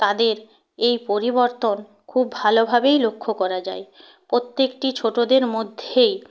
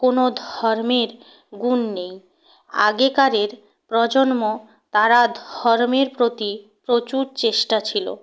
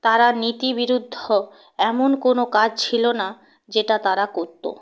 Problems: background sounds at intervals